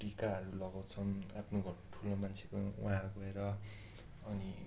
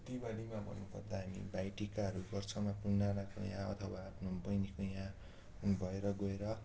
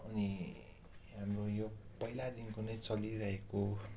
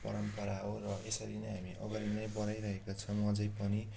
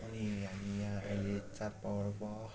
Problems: constant background noise